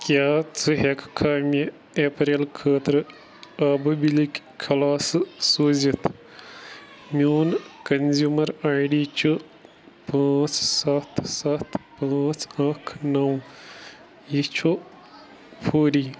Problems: constant background noise